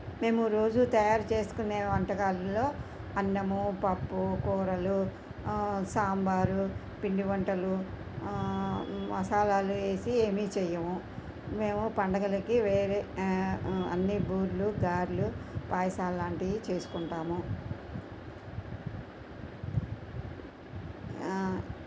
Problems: constant background noise